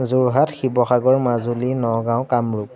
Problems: constant background noise